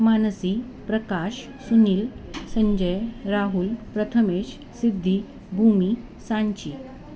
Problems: constant background noise, background conversations at intervals